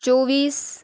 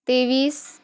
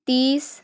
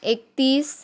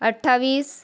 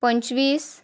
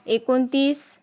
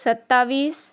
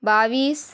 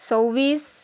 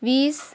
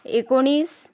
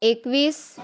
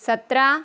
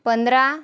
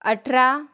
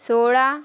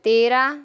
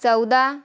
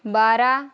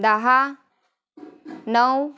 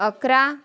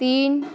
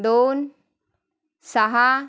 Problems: constant background noise